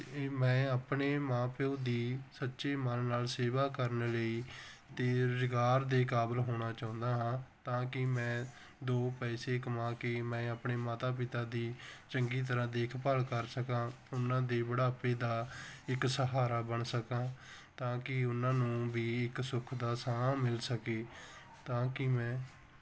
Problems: background sounds at intervals